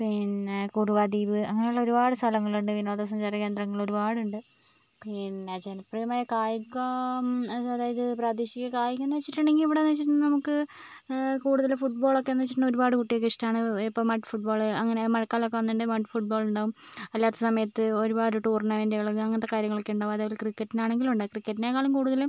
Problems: background sounds at intervals